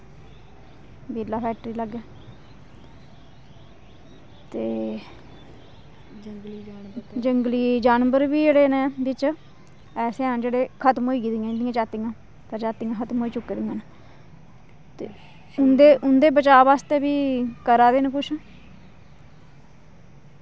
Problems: background sounds at intervals